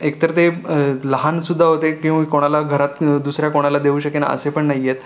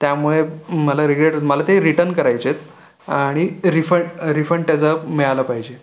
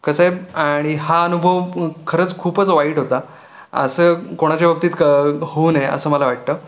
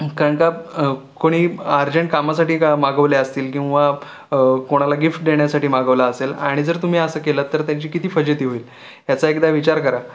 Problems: none marked